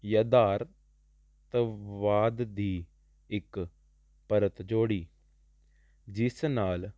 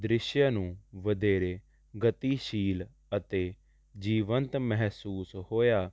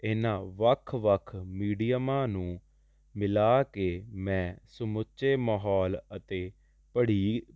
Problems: constant background noise